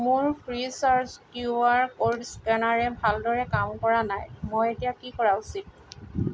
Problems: constant background noise